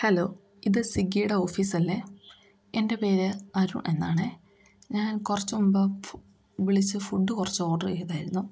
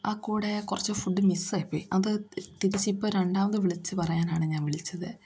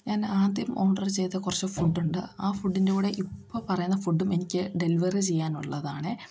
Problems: background sounds at intervals